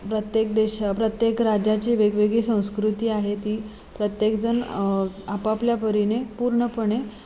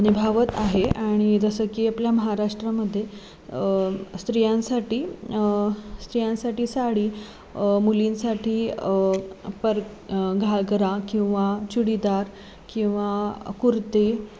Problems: constant background noise, background conversations at intervals